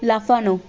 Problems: constant background noise